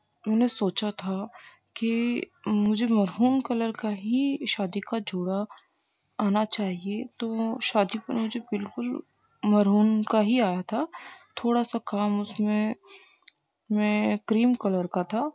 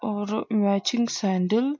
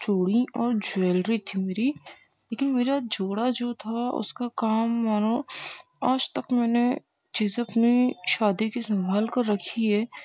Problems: constant background noise